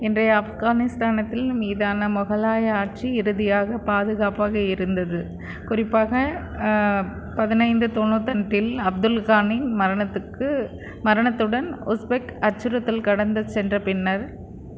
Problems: constant background noise